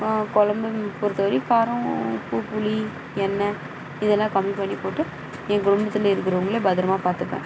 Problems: background sounds at intervals